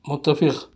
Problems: constant background noise